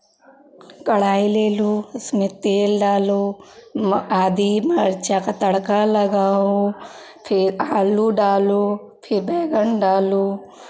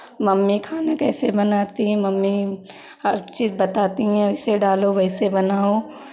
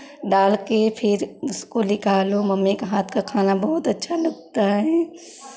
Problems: constant background noise